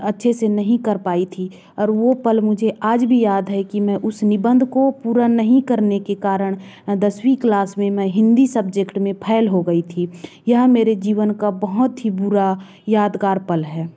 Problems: background sounds at intervals